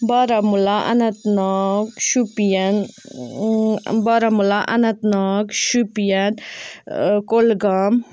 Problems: background sounds at intervals